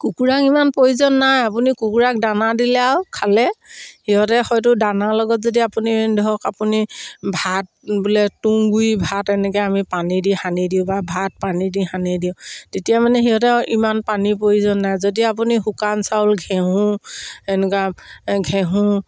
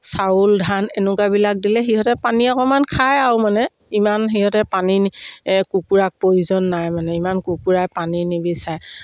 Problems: none marked